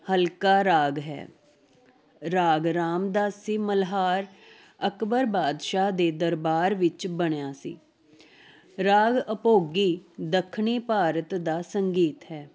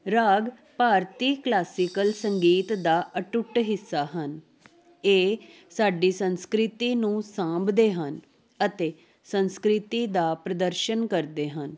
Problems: constant background noise